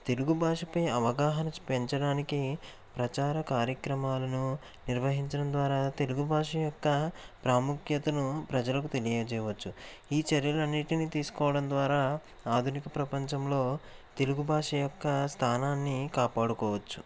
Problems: constant background noise